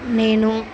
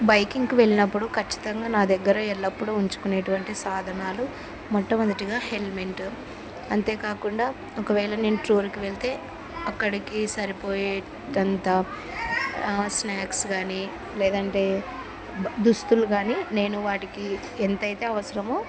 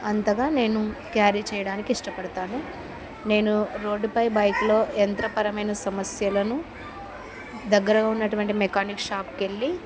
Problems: continuous background conversations